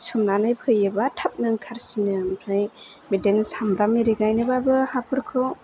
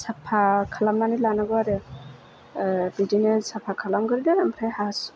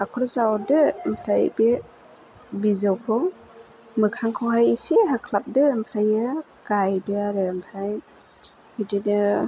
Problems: none marked